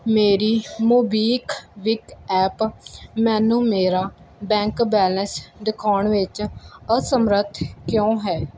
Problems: background sounds at intervals